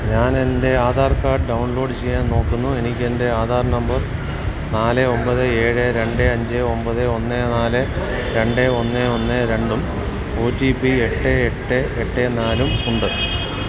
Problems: constant background noise